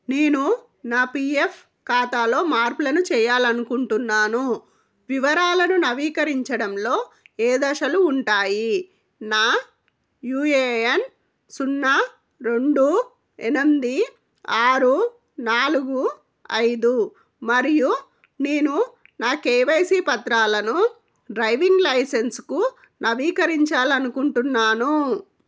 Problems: none marked